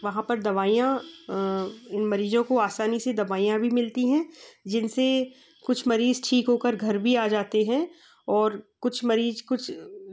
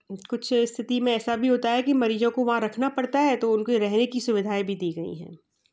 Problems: background sounds at intervals